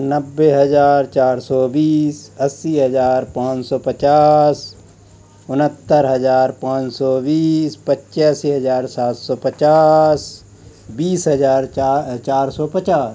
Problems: none marked